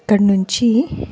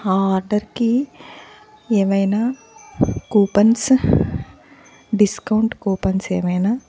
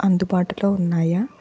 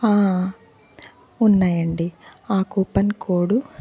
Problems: background sounds at intervals, continuous background conversations